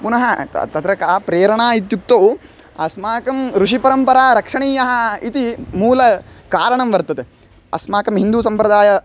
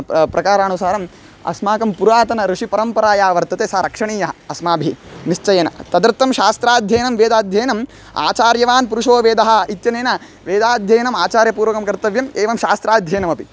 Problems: background sounds at intervals